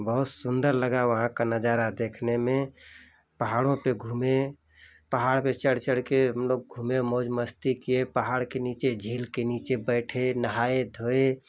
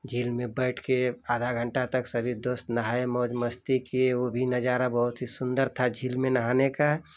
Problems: constant background noise